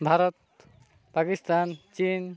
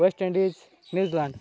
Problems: none marked